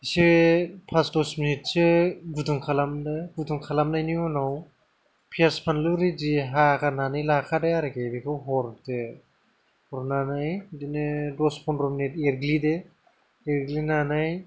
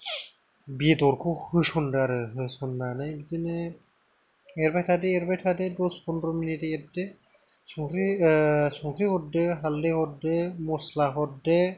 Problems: low volume